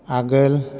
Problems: none marked